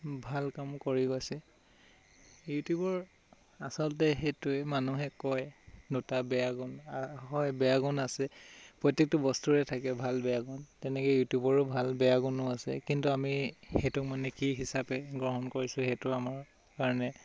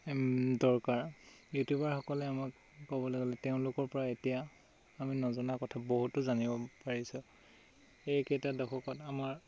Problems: constant background noise